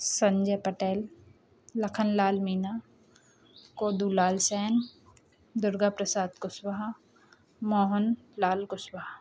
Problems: background sounds at intervals